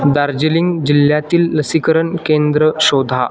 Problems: constant background noise, continuous background conversations